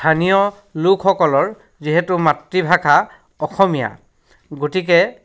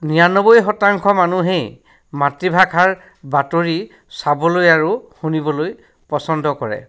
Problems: none marked